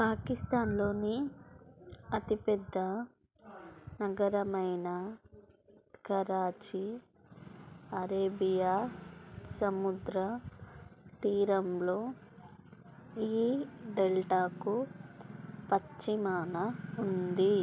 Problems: low volume